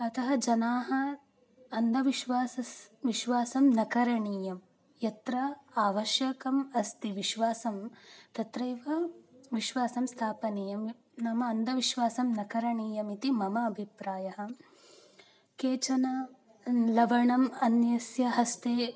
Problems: none marked